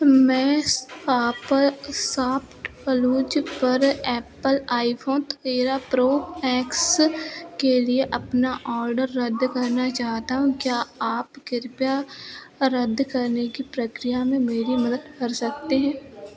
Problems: constant background noise